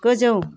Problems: none marked